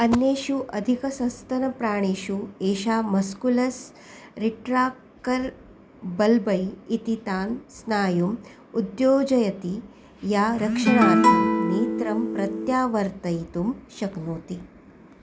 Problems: background sounds at intervals